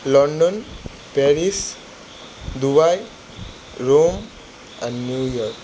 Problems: constant background noise